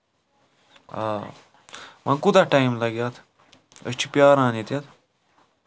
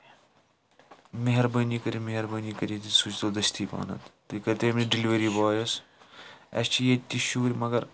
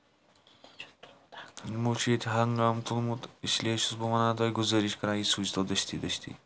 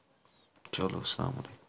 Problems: none marked